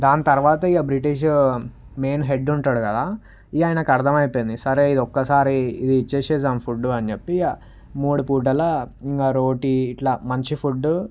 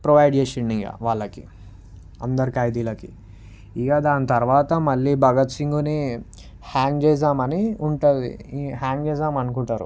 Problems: background sounds at intervals